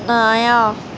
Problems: constant background noise